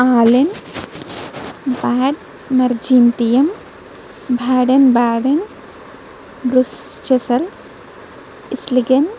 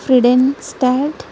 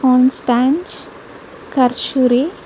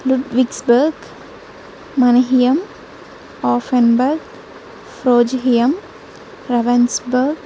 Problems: constant background noise